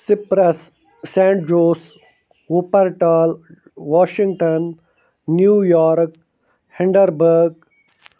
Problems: none marked